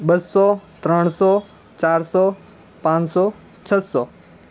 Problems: none marked